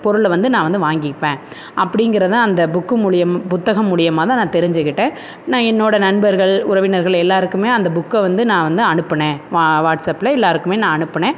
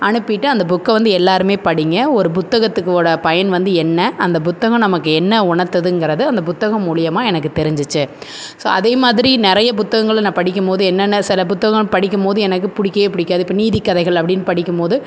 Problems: constant background noise